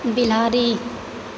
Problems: constant background noise